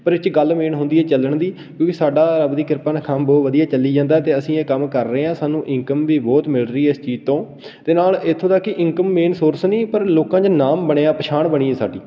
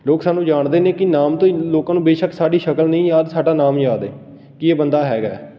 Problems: background sounds at intervals